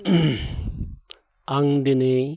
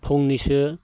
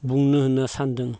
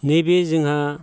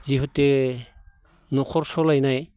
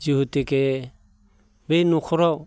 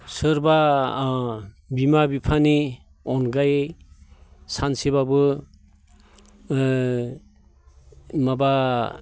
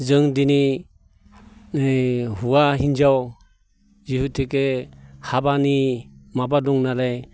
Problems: constant background noise